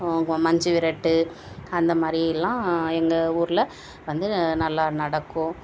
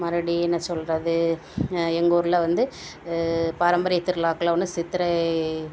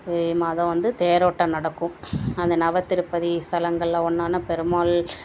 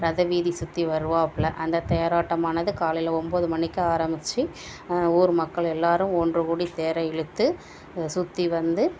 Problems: none marked